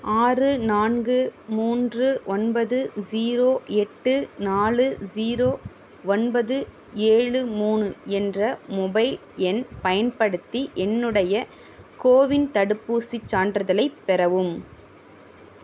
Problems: none marked